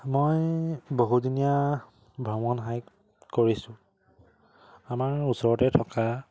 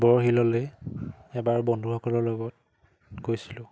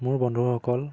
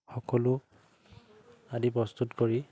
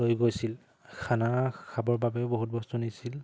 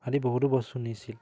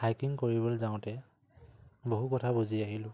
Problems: none marked